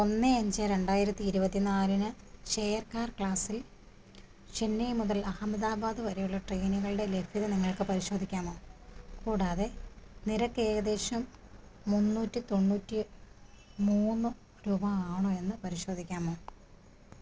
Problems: constant background noise, low volume